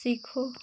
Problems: none marked